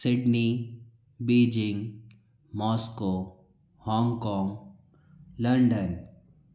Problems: low volume